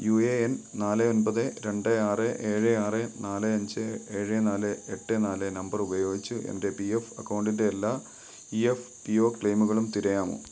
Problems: background sounds at intervals